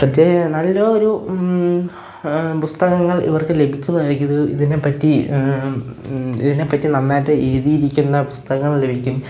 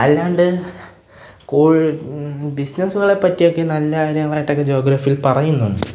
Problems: background sounds at intervals